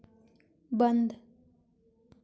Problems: constant background noise